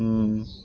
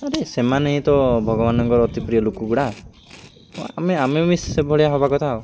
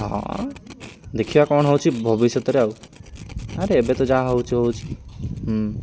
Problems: none marked